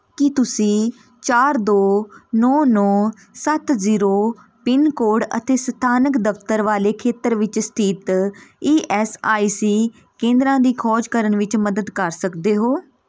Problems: background sounds at intervals